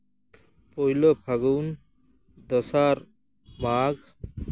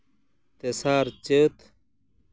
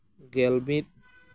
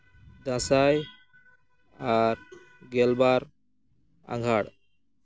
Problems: background sounds at intervals